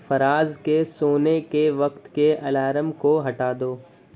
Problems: constant background noise